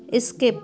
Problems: background conversations at intervals